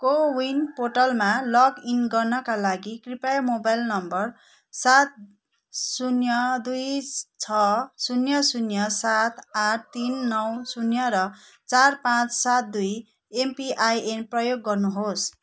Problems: none marked